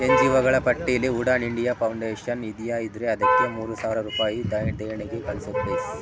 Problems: constant background noise, continuous background conversations